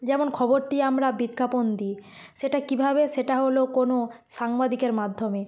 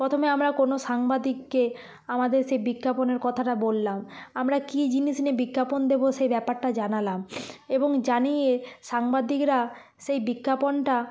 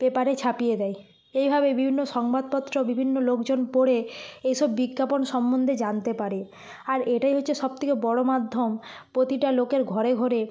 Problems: constant background noise